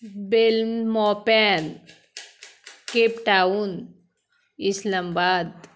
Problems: constant background noise